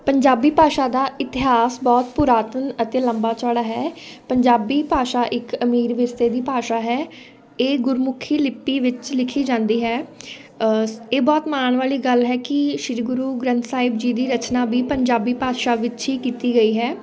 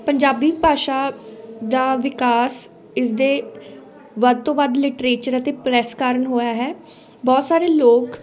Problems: continuous background conversations